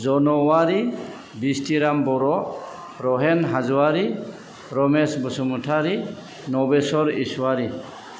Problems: background sounds at intervals